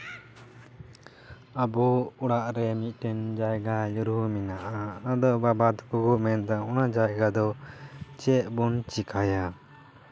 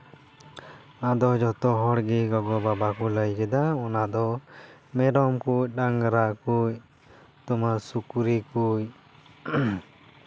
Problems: background sounds at intervals, background conversations at intervals